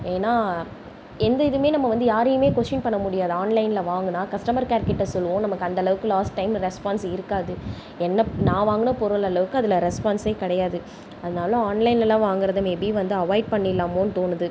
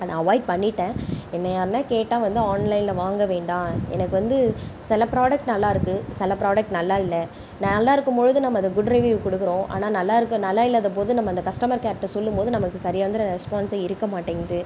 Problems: none marked